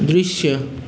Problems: constant background noise